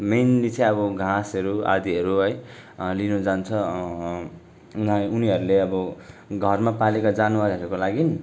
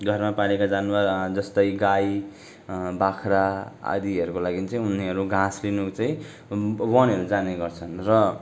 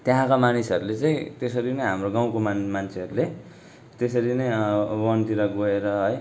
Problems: none marked